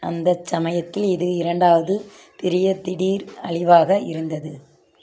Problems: none marked